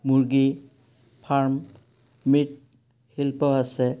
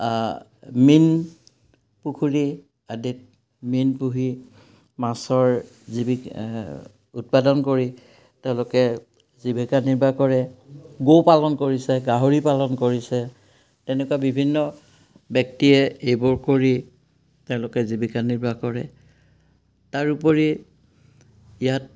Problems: background sounds at intervals